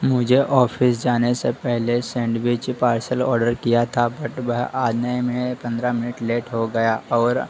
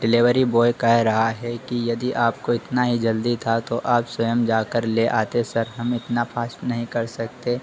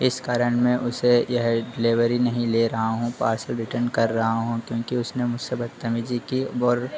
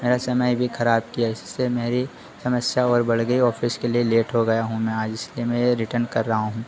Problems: constant background noise